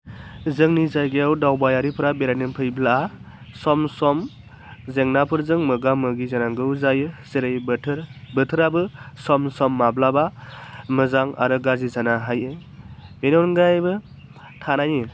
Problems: none marked